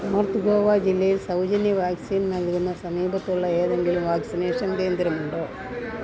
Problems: continuous background conversations, low volume